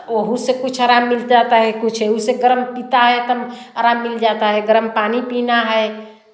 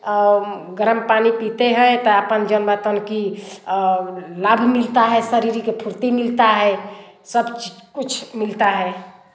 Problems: constant background noise, background conversations at intervals, echo